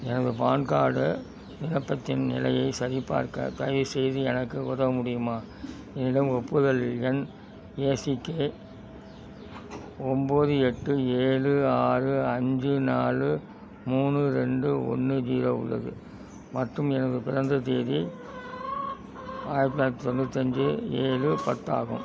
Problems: constant background noise